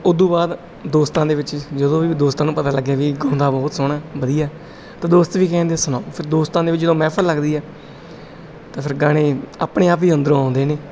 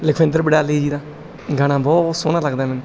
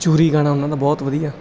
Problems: background sounds at intervals